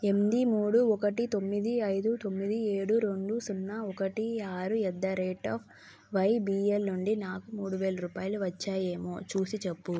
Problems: none marked